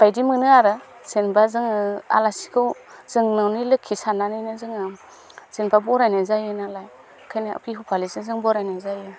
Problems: constant background noise